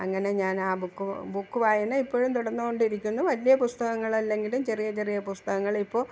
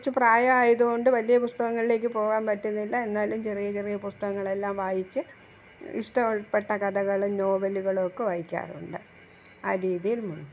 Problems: background sounds at intervals